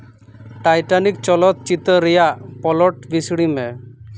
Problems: constant background noise